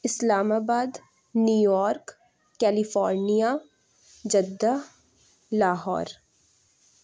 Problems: none marked